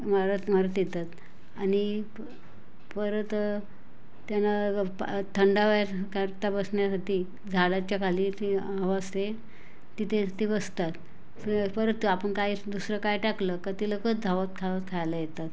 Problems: constant background noise, background conversations at intervals